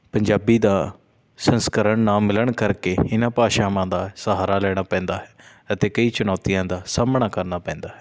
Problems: none marked